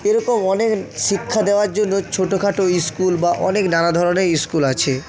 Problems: continuous background conversations